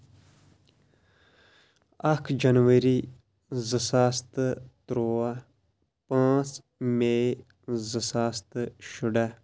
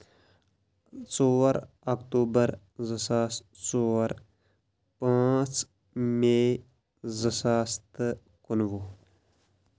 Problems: none marked